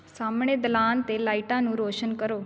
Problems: constant background noise